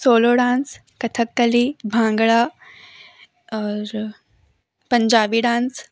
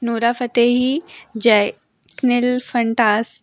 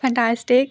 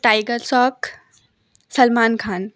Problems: none marked